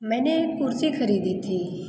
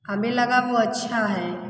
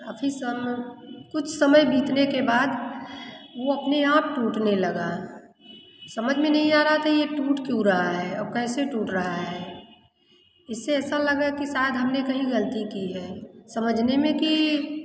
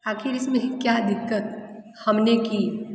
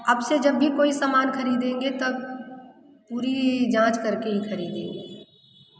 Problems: constant background noise, continuous background conversations, echo